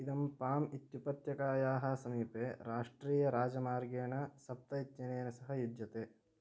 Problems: low volume